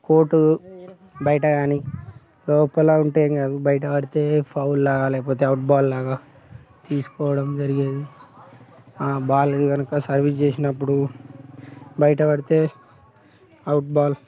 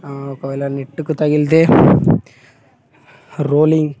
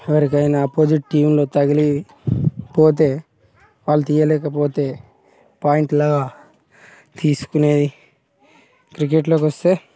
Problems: background sounds at intervals, background conversations at intervals